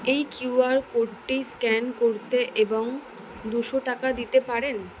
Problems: none marked